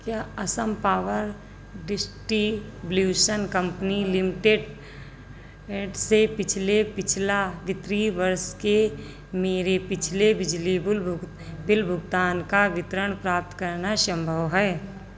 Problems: constant background noise